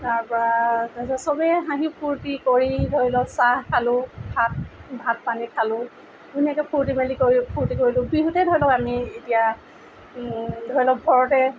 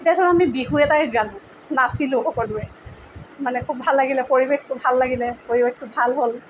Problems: background sounds at intervals